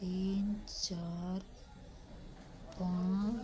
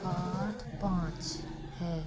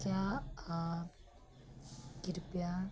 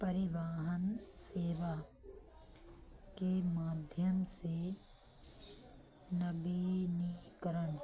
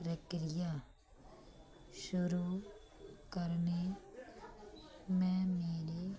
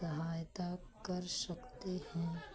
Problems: low volume